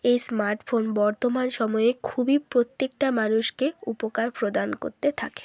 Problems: constant background noise